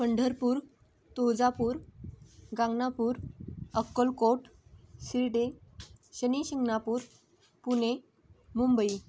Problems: constant background noise